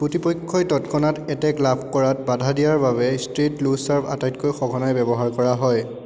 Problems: constant background noise, echo